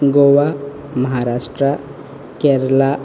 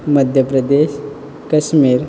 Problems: none marked